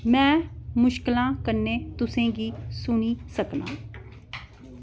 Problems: none marked